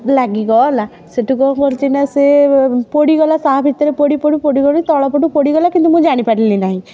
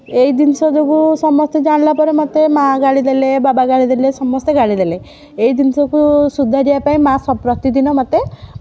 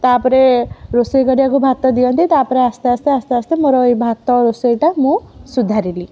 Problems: background conversations at intervals